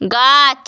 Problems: none marked